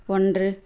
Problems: none marked